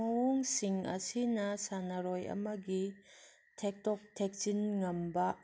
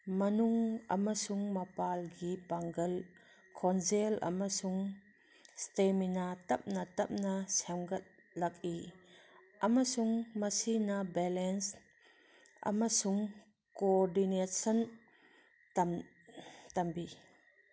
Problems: background sounds at intervals